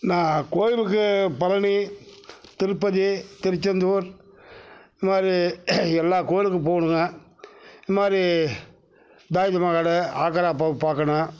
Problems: none marked